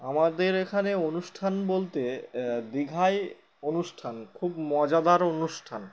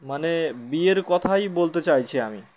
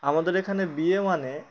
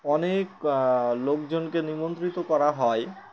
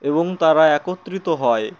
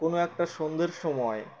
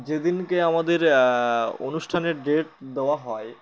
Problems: constant background noise, background conversations at intervals